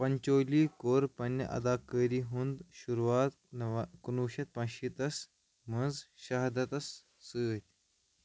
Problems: none marked